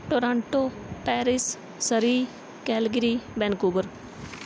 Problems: background sounds at intervals